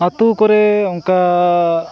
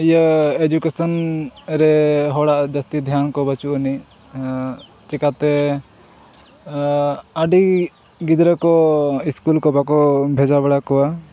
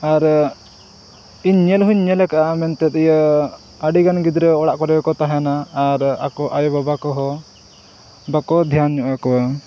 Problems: none marked